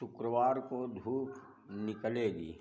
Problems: low volume